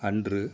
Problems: none marked